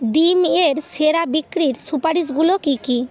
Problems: constant background noise